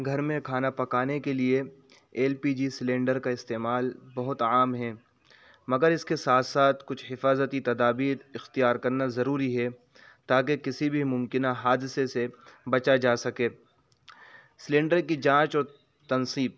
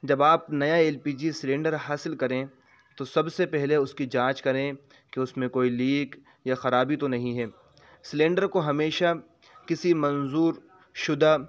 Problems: constant background noise